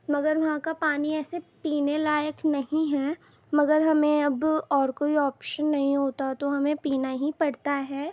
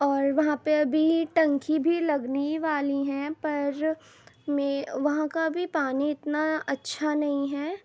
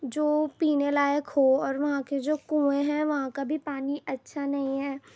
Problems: constant background noise